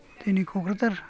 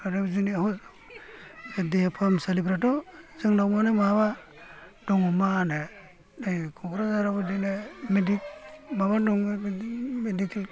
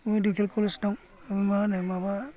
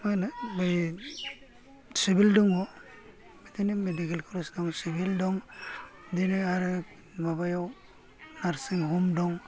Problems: low volume